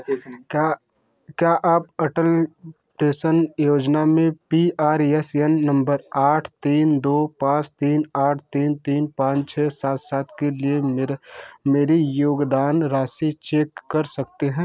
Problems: none marked